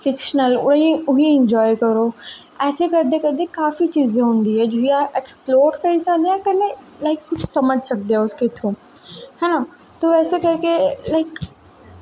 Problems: echo